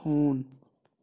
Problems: none marked